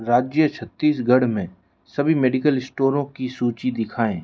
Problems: none marked